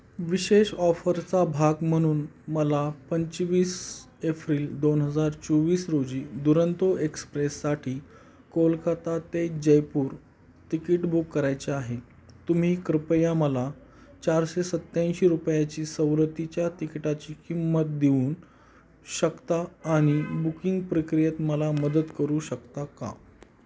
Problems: none marked